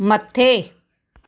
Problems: none marked